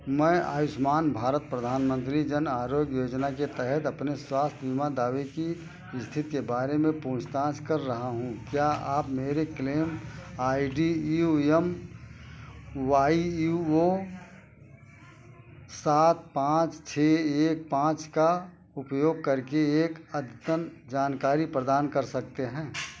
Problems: none marked